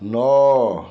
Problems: background sounds at intervals